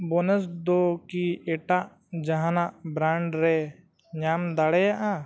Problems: low volume